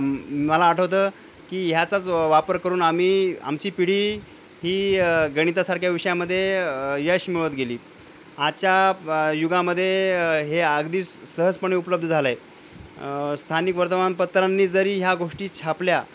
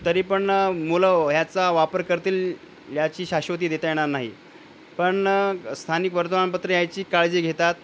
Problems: constant background noise, low volume